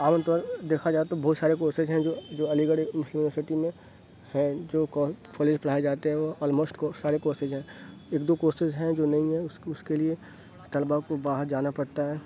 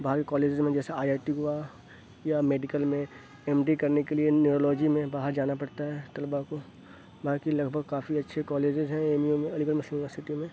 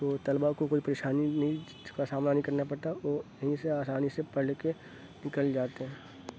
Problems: constant background noise, low volume